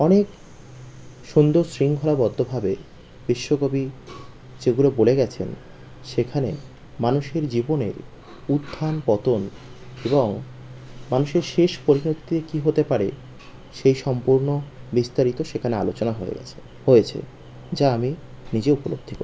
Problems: constant background noise